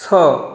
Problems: background sounds at intervals